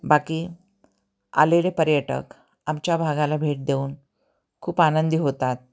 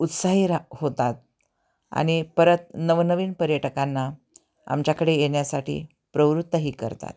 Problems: constant background noise, continuous background conversations